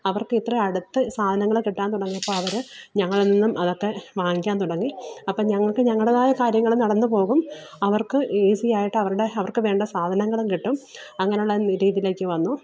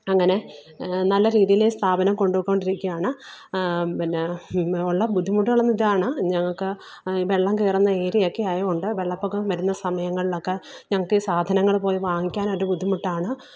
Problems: background sounds at intervals